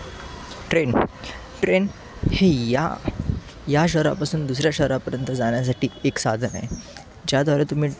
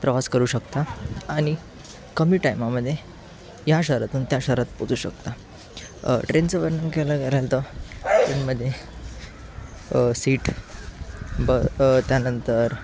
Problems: none marked